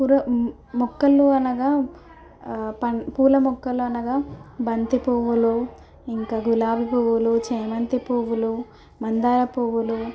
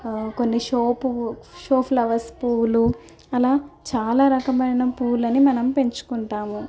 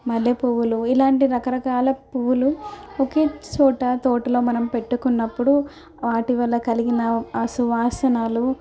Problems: none marked